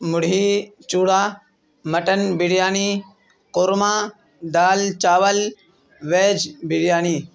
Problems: none marked